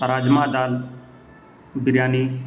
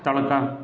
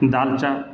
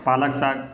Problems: constant background noise